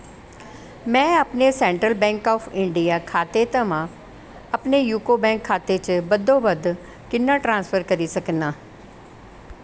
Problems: none marked